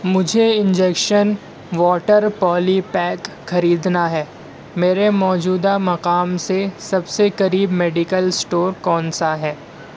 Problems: none marked